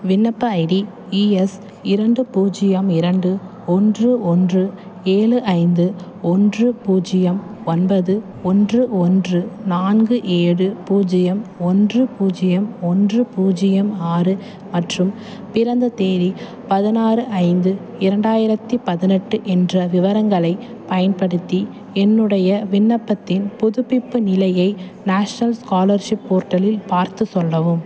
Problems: constant background noise, background conversations at intervals